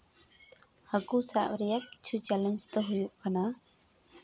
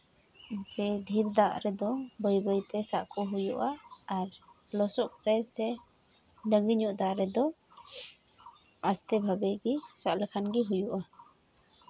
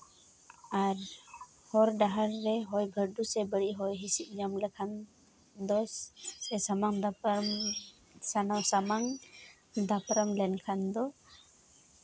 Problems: constant background noise